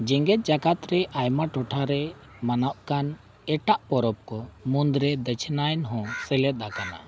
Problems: background sounds at intervals